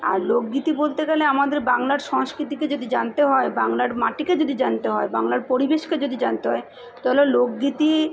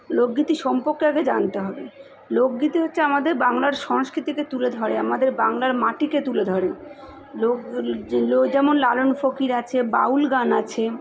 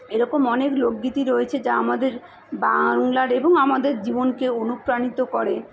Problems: constant background noise, continuous background conversations